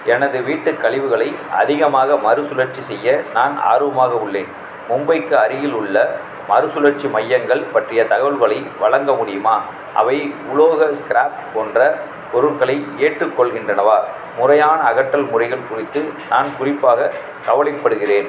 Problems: background sounds at intervals, background conversations at intervals